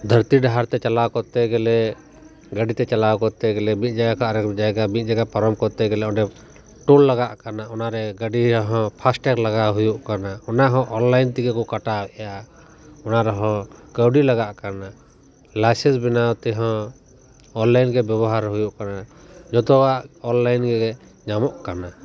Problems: background sounds at intervals